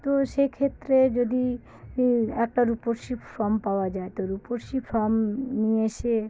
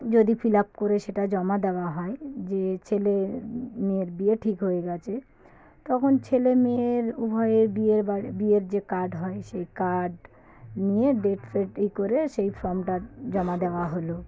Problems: background conversations at intervals